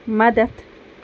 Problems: none marked